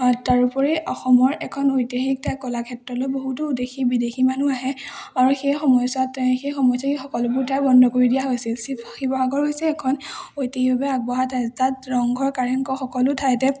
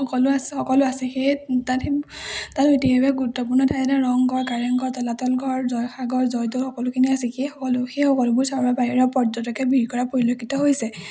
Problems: none marked